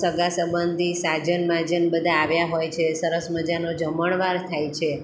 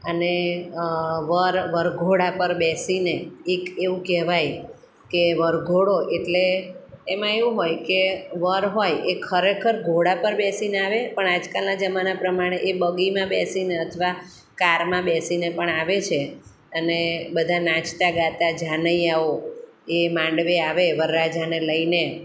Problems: none marked